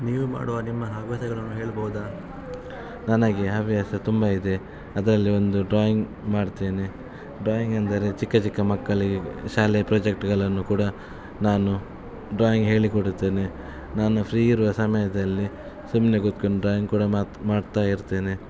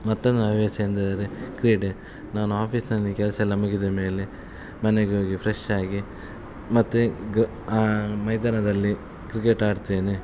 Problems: constant background noise